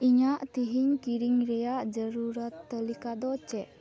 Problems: constant background noise